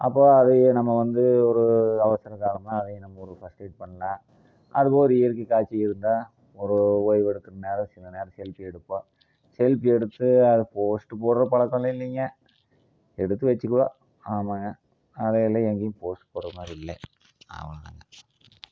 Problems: low volume